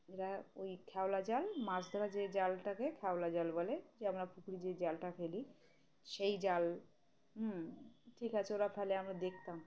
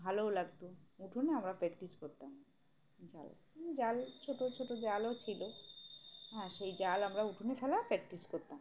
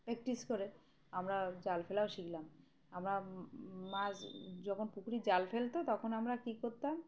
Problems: none marked